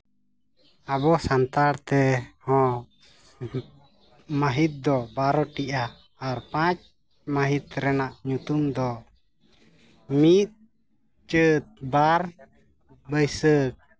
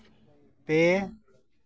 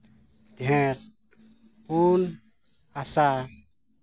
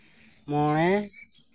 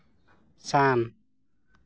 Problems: background sounds at intervals